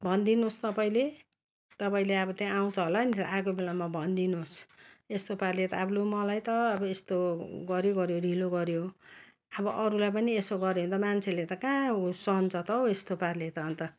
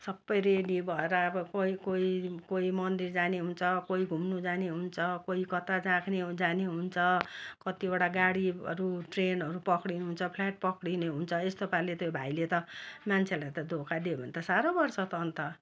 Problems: constant background noise